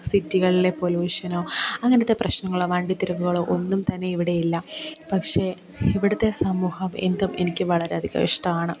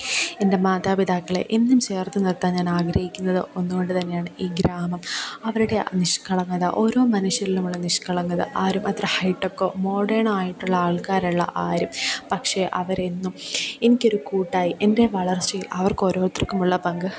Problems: background sounds at intervals